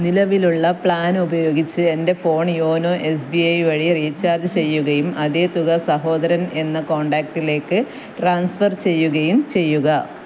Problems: none marked